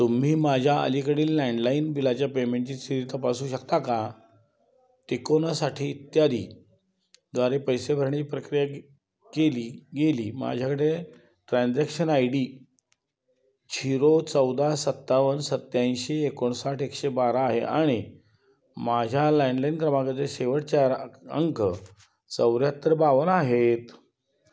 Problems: none marked